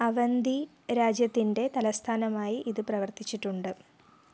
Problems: low volume